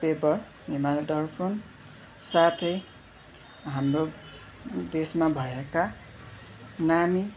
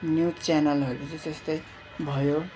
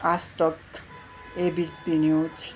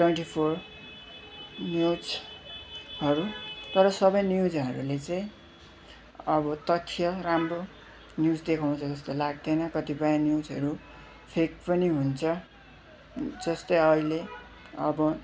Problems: constant background noise